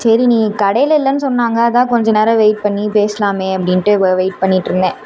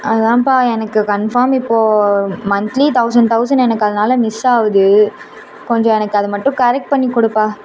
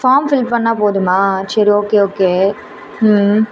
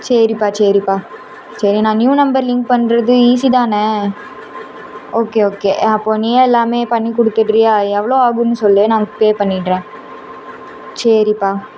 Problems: constant background noise